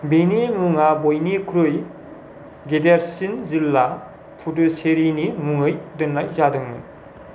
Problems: low volume